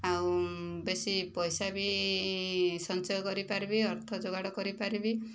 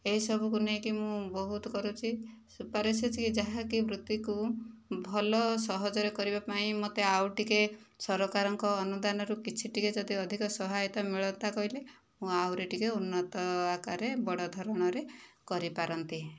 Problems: low volume